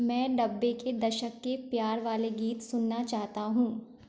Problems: background sounds at intervals